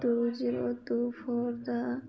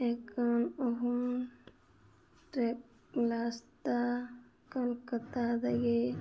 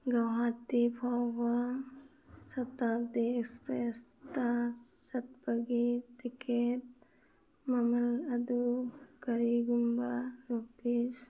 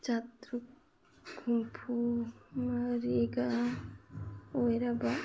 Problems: background sounds at intervals, background conversations at intervals